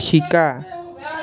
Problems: continuous background conversations